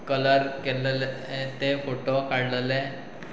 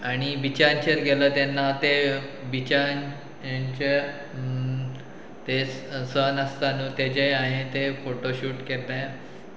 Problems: background sounds at intervals